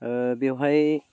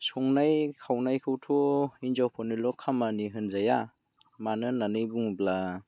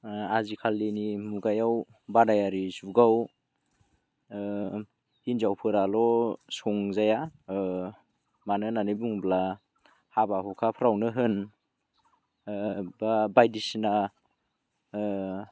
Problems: none marked